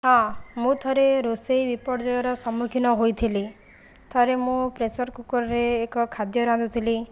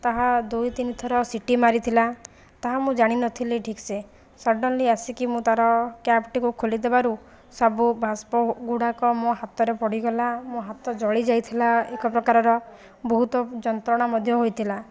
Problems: background sounds at intervals